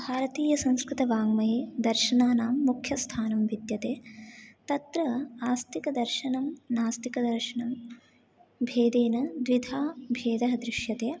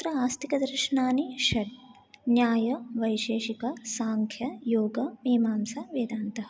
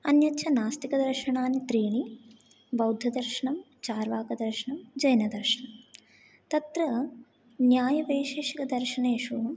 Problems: none marked